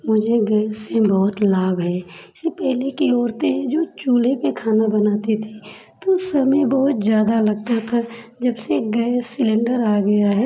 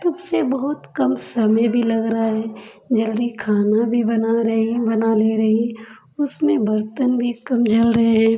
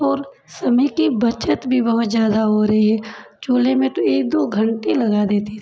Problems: none marked